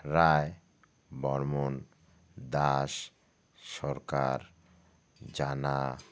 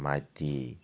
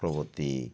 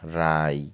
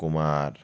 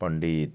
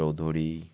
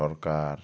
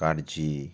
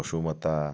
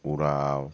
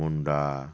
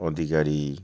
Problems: constant background noise